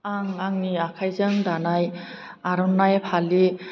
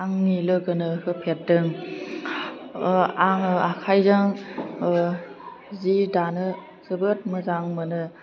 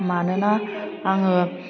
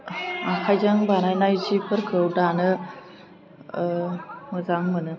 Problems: constant background noise